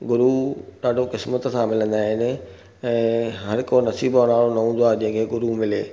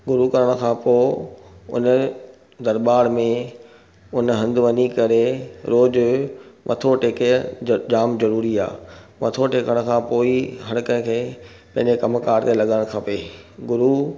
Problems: none marked